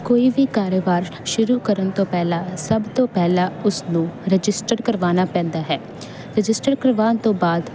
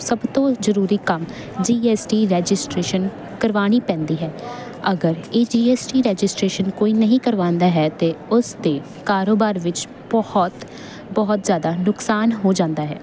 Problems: none marked